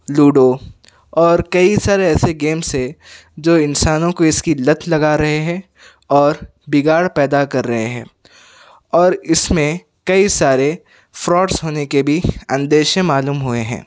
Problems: none marked